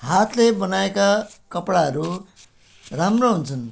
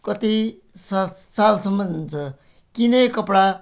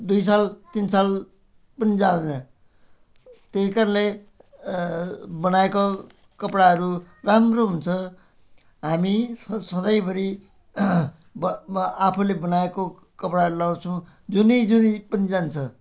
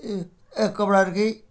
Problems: background sounds at intervals